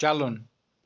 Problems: none marked